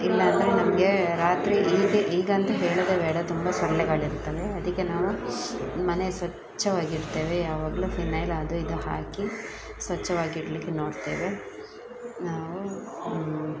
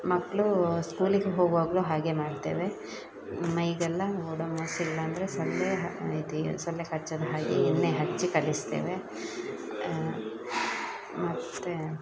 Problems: background sounds at intervals